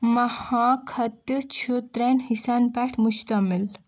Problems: background sounds at intervals